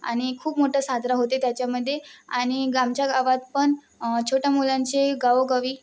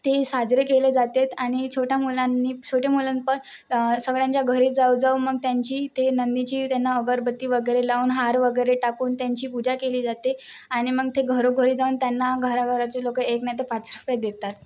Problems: constant background noise